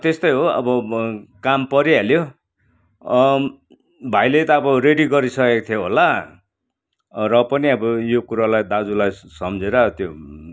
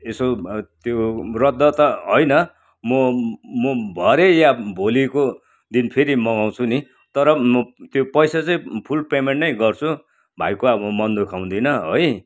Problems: background sounds at intervals